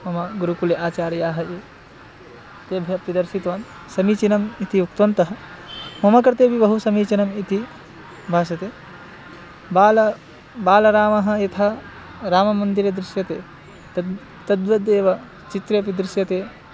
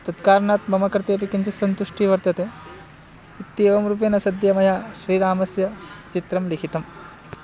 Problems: background sounds at intervals